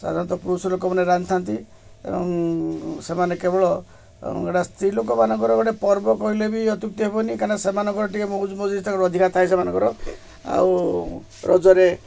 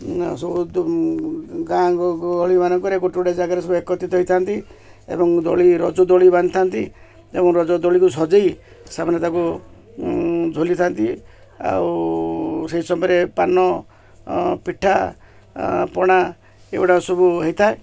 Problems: background sounds at intervals